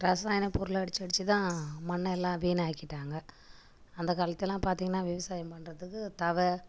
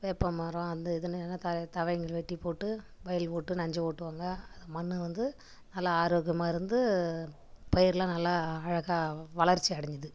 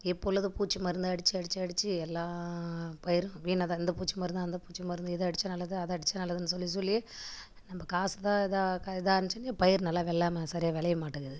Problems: background sounds at intervals